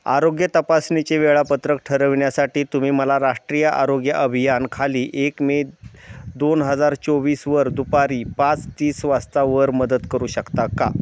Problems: constant background noise